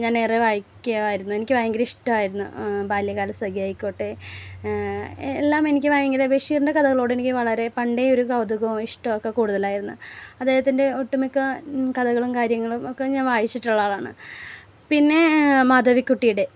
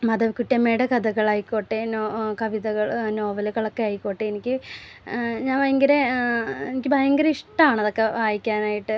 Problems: none marked